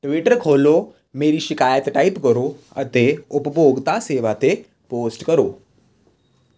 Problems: constant background noise